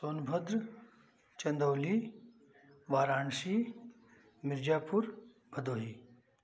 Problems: constant background noise